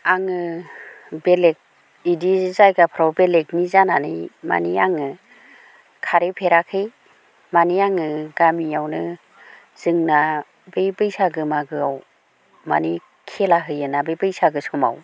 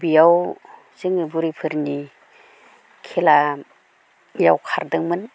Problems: constant background noise